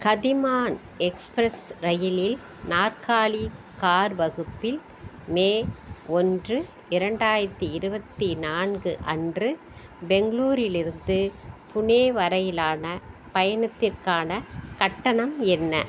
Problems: constant background noise